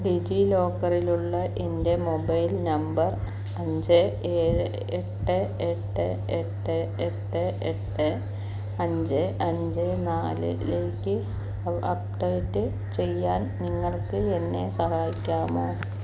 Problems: low volume